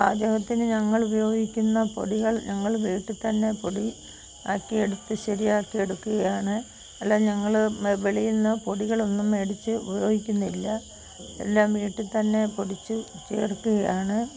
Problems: constant background noise